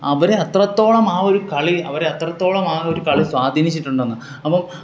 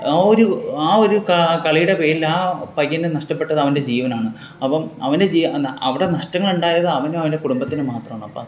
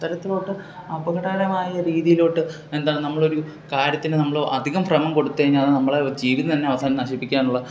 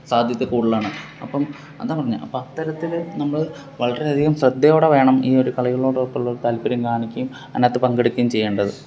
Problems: none marked